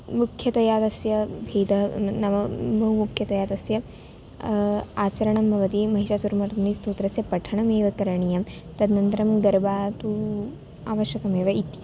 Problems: none marked